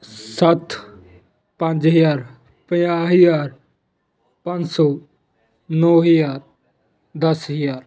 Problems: continuous background conversations